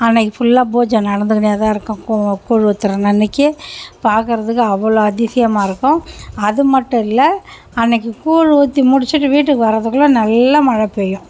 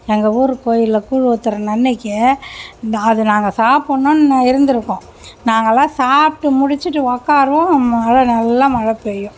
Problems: constant background noise